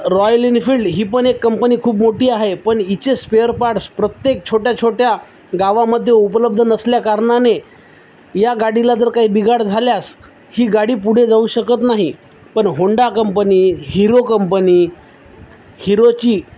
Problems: none marked